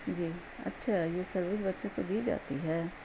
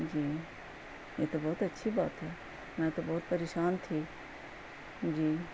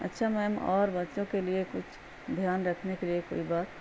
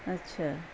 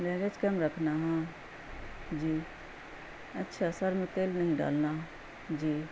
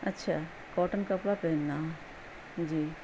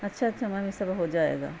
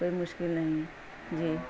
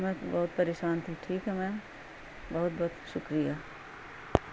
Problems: constant background noise